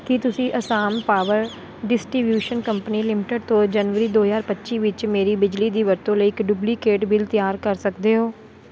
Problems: none marked